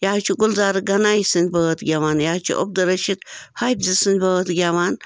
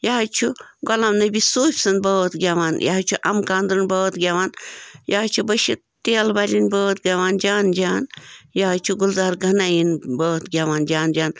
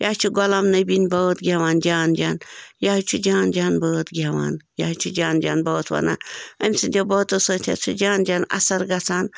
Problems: background sounds at intervals